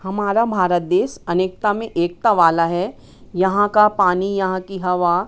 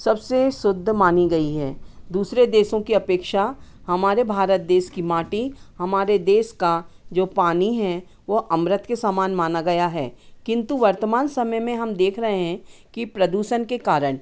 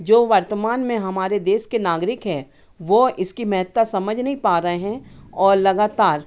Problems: constant background noise, background conversations at intervals